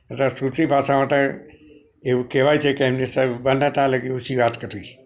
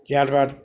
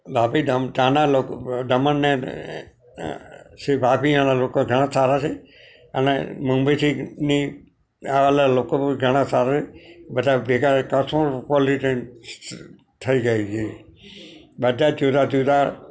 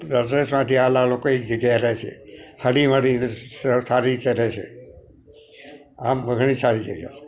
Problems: none marked